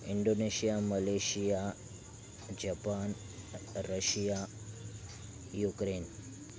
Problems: none marked